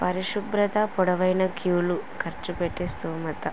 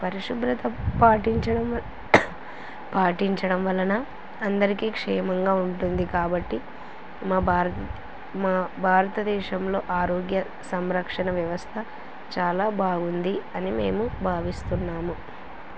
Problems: constant background noise